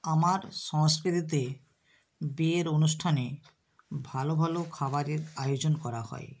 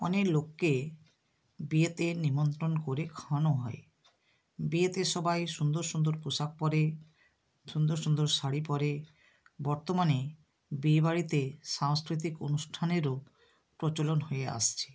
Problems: constant background noise